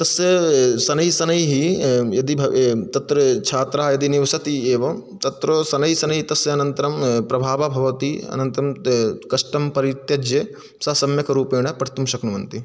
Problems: none marked